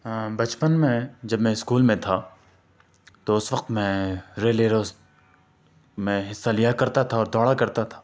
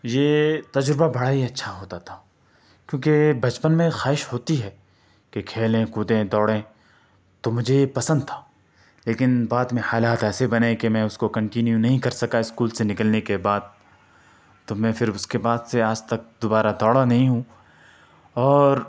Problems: none marked